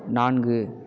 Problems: none marked